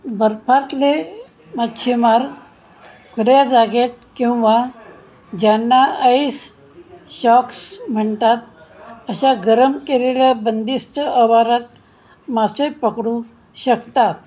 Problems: none marked